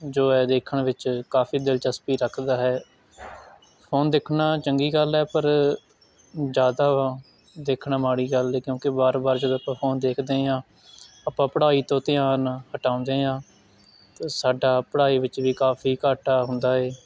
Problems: constant background noise